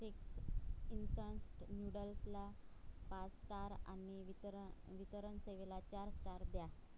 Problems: background sounds at intervals, low volume